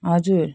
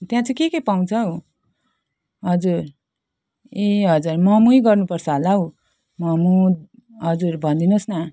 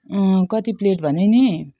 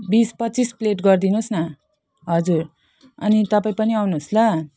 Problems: none marked